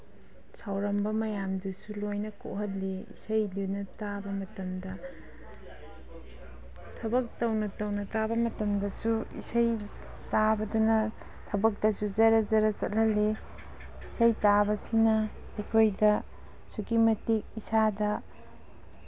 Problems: background sounds at intervals